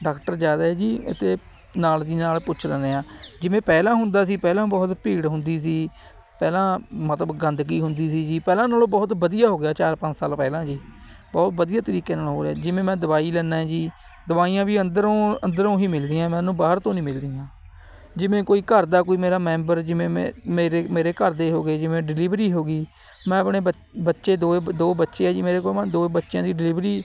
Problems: none marked